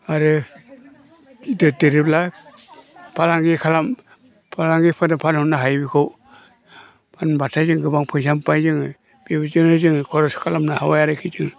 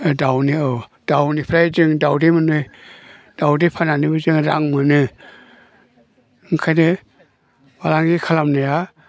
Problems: low volume